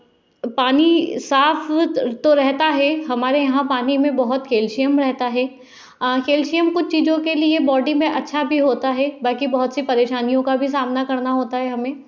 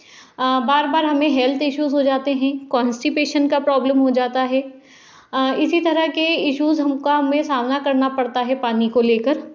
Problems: none marked